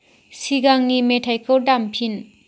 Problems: constant background noise